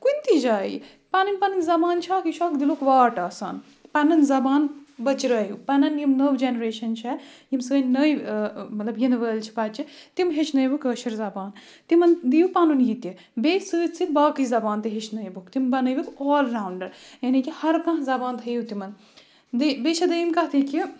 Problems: none marked